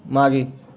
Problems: background sounds at intervals